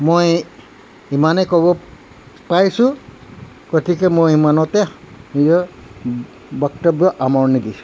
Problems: constant background noise